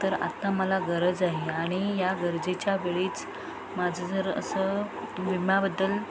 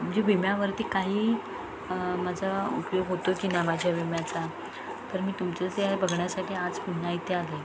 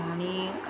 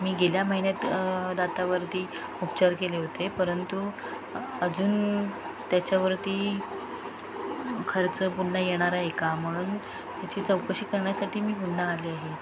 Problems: constant background noise, continuous background conversations